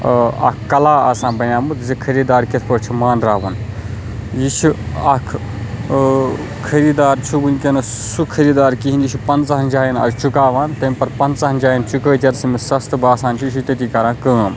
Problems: constant background noise